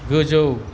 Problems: constant background noise